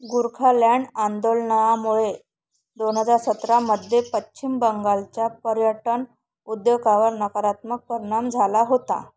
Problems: none marked